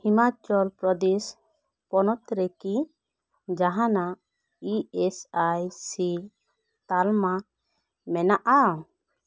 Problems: none marked